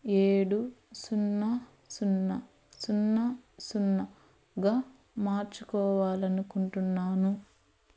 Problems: constant background noise